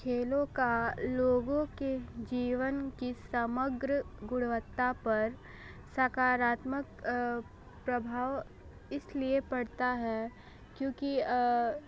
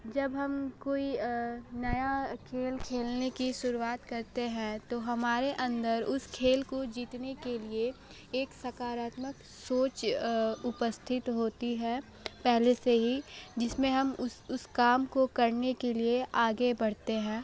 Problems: background sounds at intervals, low volume